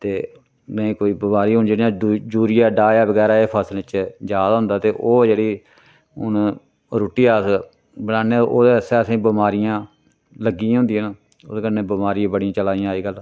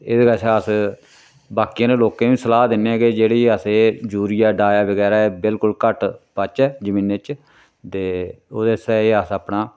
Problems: none marked